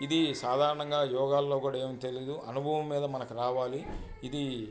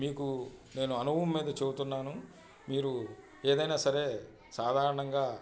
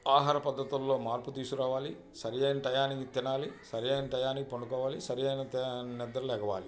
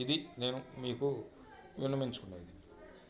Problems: constant background noise, background conversations at intervals